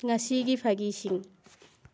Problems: none marked